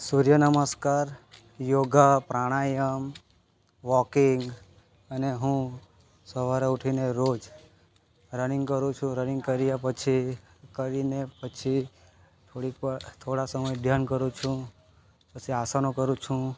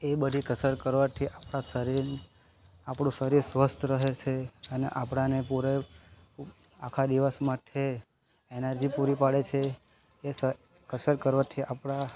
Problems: constant background noise